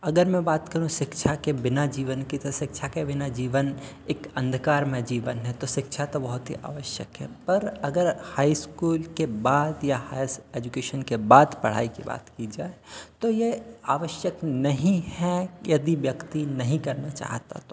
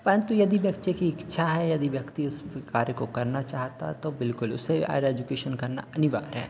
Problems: constant background noise, continuous background conversations